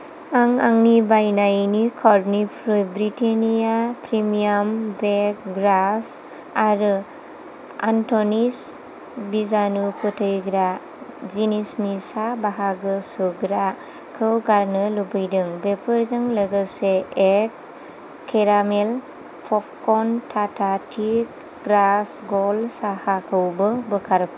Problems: constant background noise